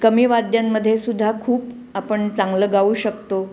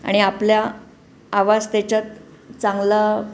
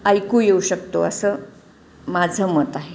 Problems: constant background noise